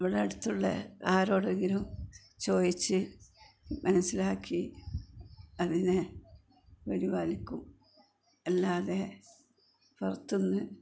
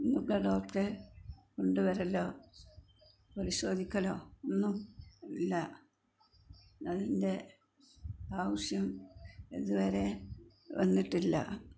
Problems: constant background noise, low volume